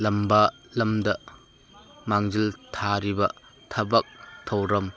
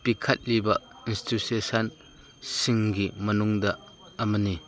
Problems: constant background noise